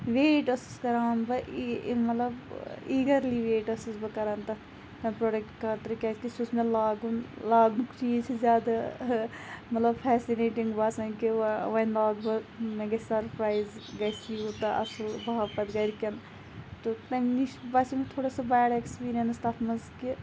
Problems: constant background noise